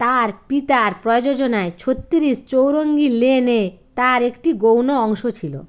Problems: none marked